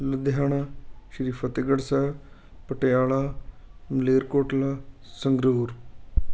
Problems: none marked